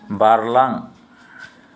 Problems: none marked